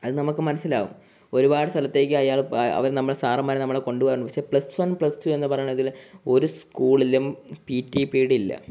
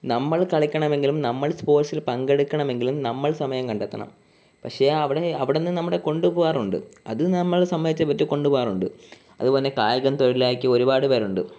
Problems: background sounds at intervals